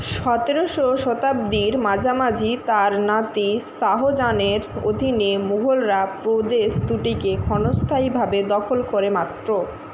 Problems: constant background noise